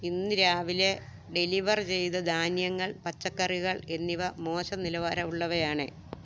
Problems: low volume